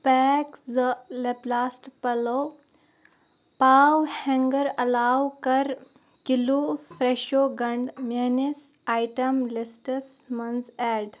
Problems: none marked